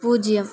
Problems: none marked